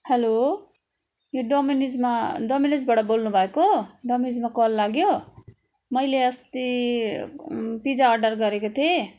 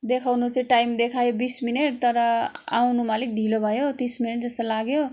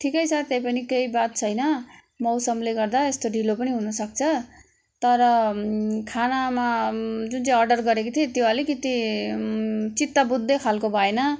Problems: constant background noise